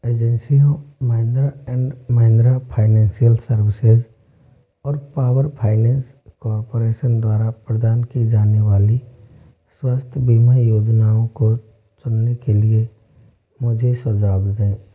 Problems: low volume